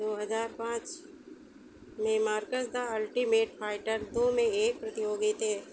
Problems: constant background noise